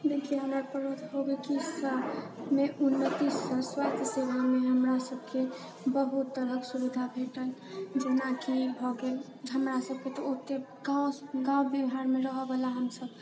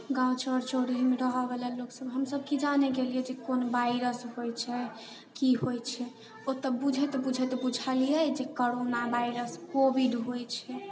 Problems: background sounds at intervals